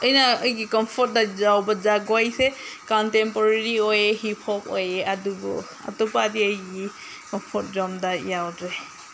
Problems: background sounds at intervals